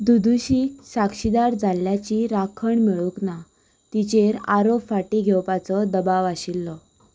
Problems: none marked